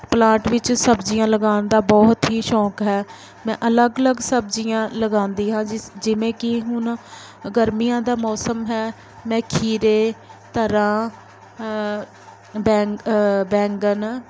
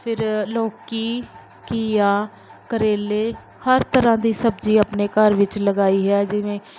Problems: background sounds at intervals